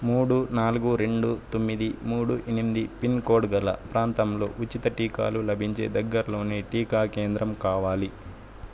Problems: constant background noise